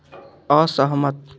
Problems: background sounds at intervals